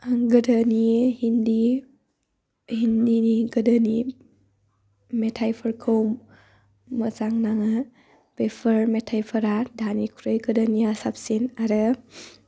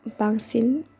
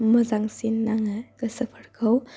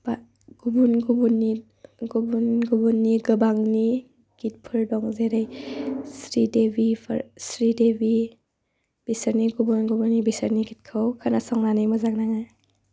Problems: low volume